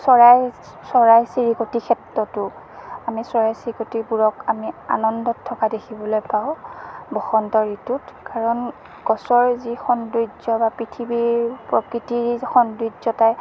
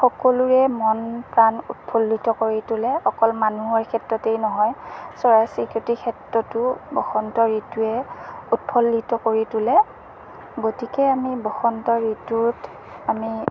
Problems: constant background noise